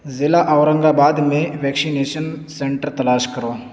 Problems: constant background noise